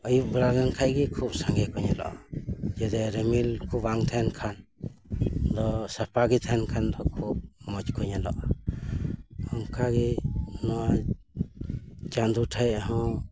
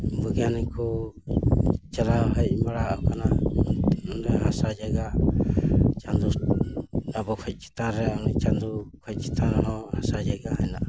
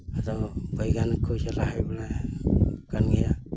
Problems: constant background noise